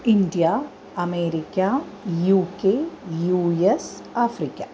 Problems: constant background noise